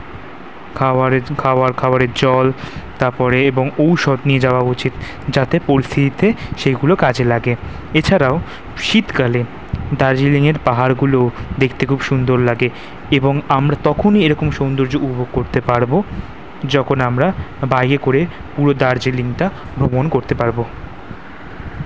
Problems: none marked